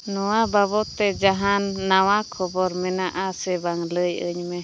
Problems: background sounds at intervals